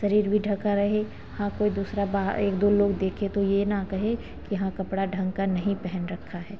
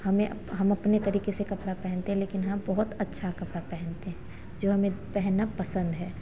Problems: constant background noise